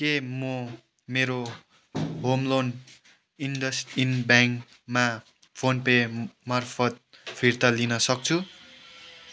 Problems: background sounds at intervals